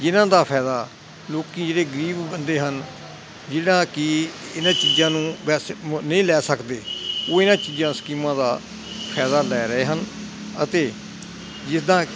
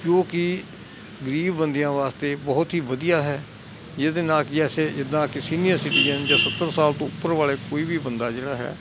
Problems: none marked